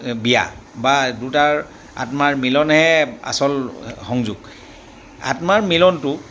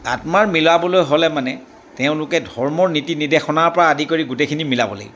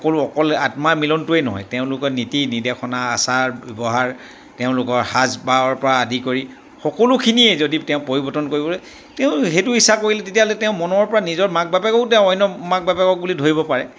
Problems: none marked